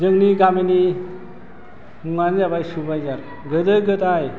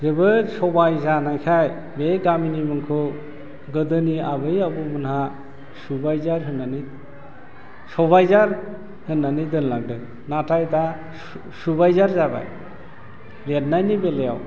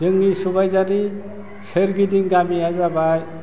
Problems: low volume